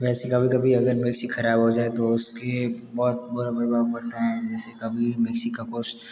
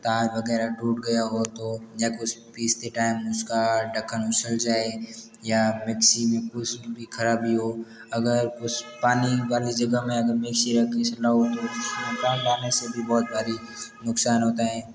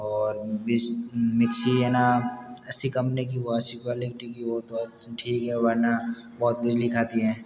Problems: background sounds at intervals